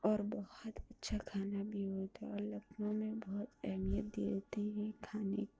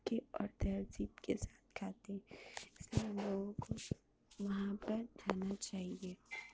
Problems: constant background noise, low volume